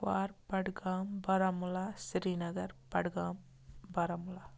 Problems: constant background noise